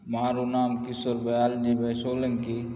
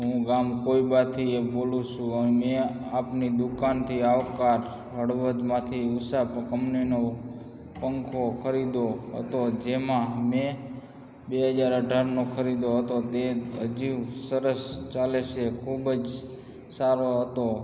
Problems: constant background noise, background conversations at intervals